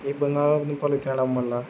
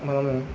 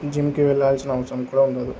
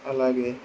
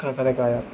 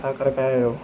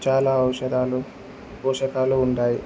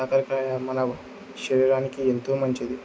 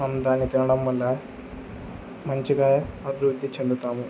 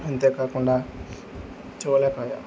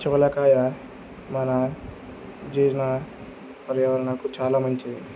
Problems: constant background noise